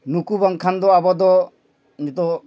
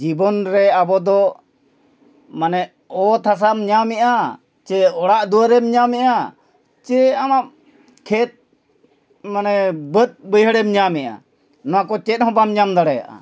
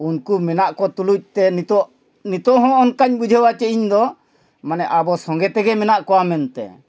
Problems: background conversations at intervals